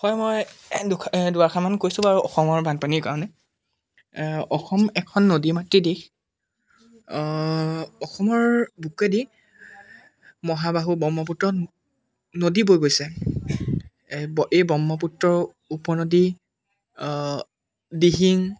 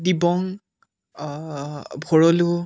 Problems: background sounds at intervals